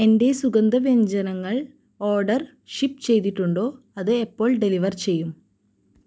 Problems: low volume